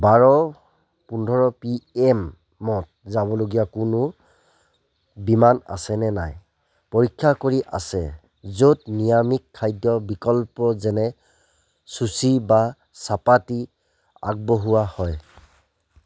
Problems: none marked